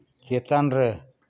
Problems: background sounds at intervals